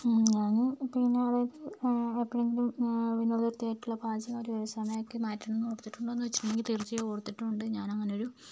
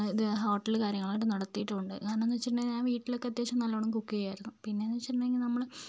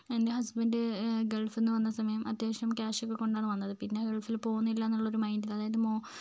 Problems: low volume